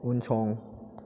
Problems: constant background noise